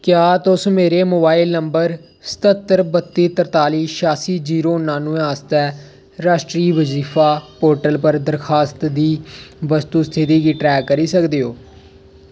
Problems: none marked